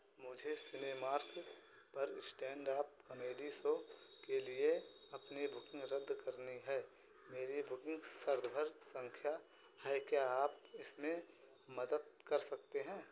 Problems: constant background noise